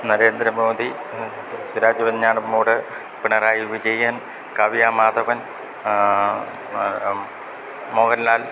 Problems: constant background noise